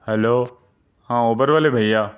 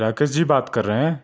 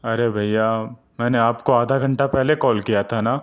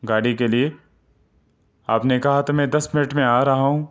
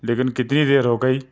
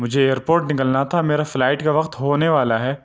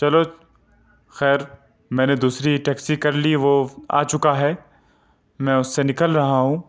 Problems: none marked